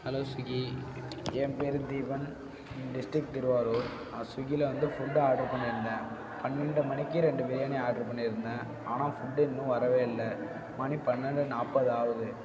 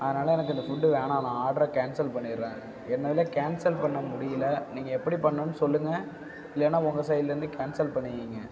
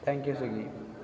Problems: background sounds at intervals